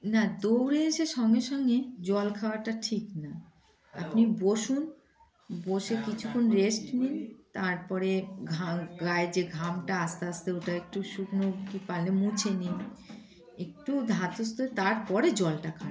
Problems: background sounds at intervals, background conversations at intervals